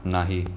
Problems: background sounds at intervals